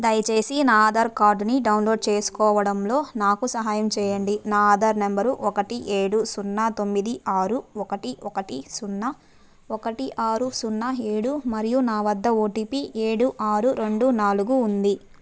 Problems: background sounds at intervals